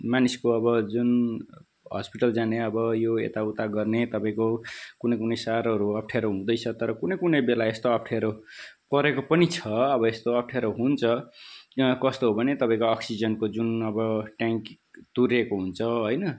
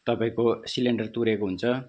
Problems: background sounds at intervals